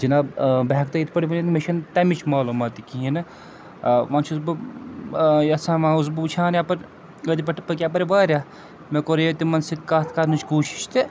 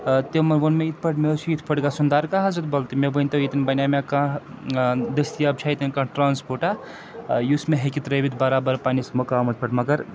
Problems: constant background noise